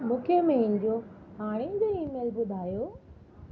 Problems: constant background noise, low volume